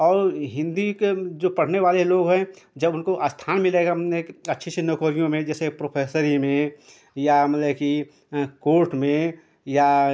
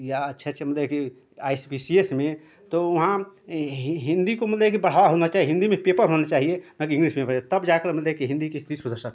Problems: constant background noise